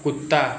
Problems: none marked